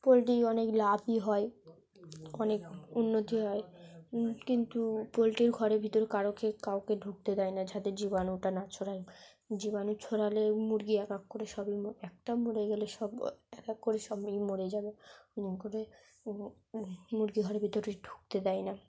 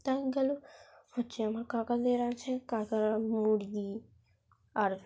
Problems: background sounds at intervals, background conversations at intervals, low volume